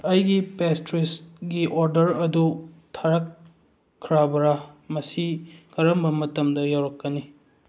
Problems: none marked